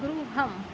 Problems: constant background noise